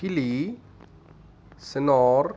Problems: constant background noise